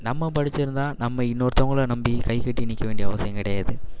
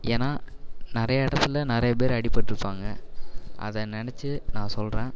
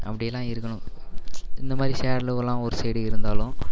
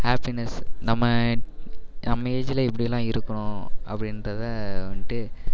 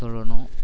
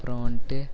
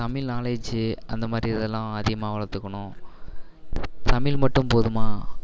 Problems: constant background noise